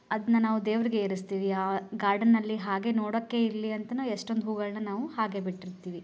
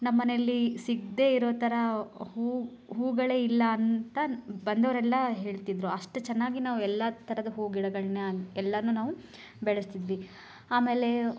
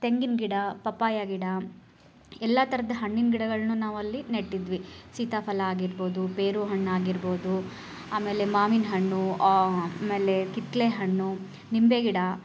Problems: none marked